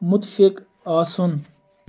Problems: background sounds at intervals, continuous background conversations